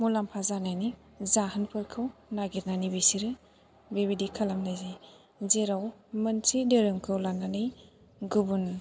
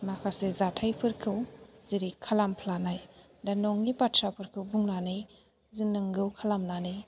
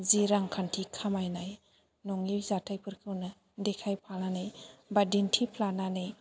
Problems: background sounds at intervals